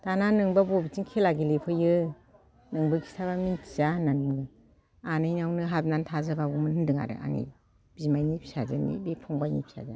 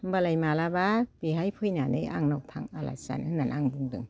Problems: none marked